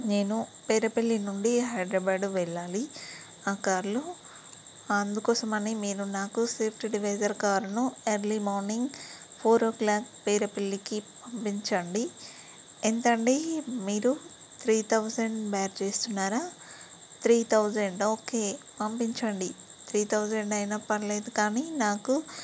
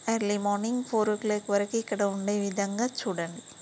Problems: constant background noise